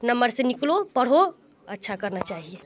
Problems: constant background noise, continuous background conversations